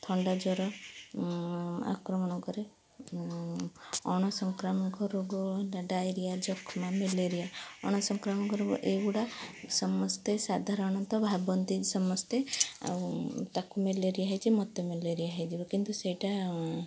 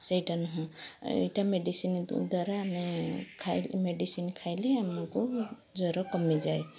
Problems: background sounds at intervals, background conversations at intervals